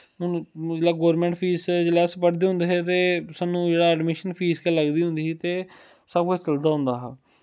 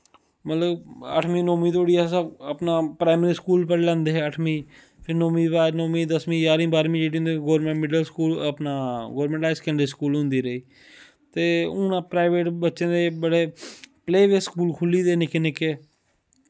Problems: none marked